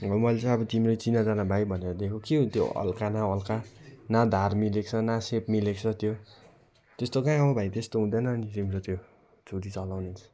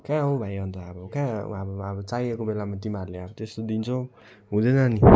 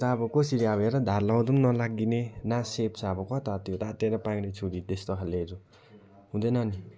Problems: none marked